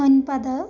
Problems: none marked